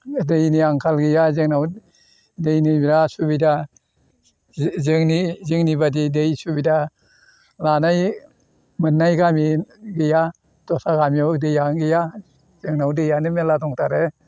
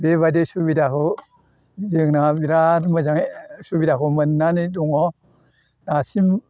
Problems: none marked